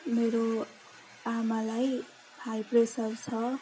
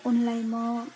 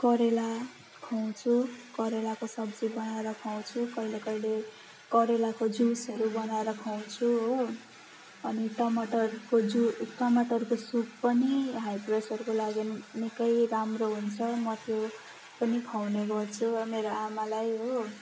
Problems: constant background noise